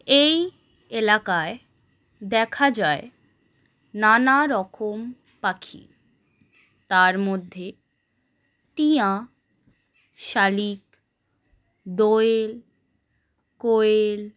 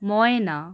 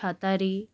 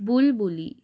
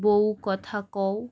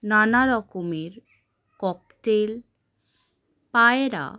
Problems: constant background noise